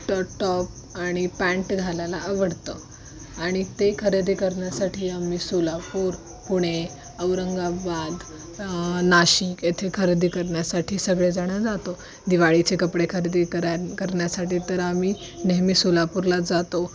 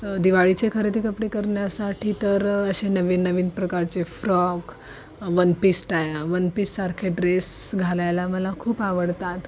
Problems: constant background noise, continuous background conversations